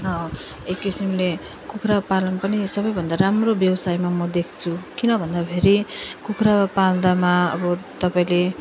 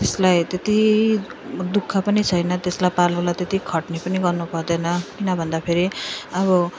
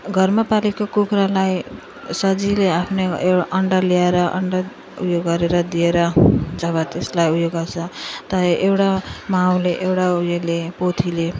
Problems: none marked